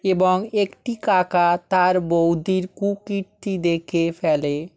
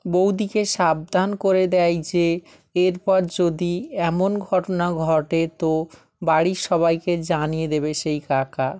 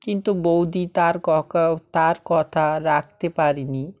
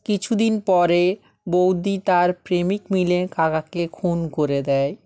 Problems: background sounds at intervals